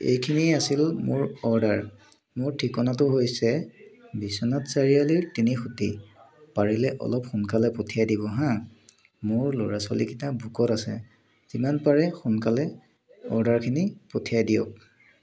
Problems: constant background noise